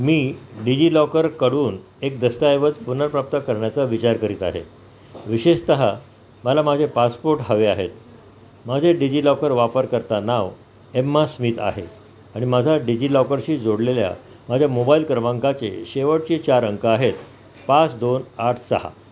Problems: constant background noise